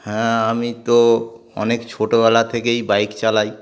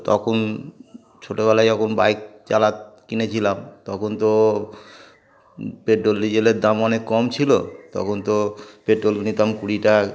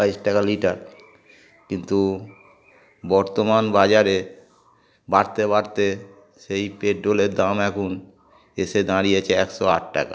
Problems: background sounds at intervals